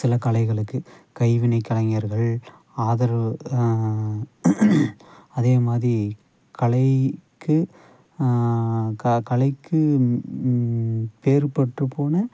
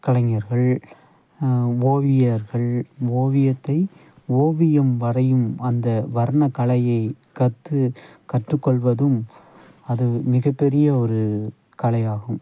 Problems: background sounds at intervals